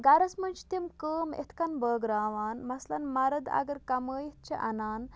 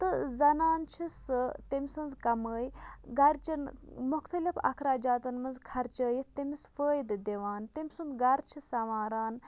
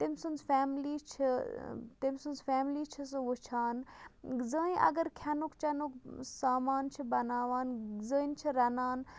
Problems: none marked